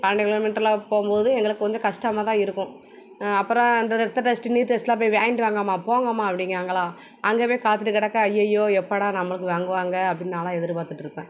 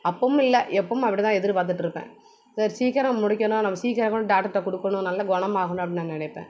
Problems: background sounds at intervals